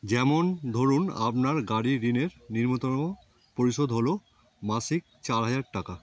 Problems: none marked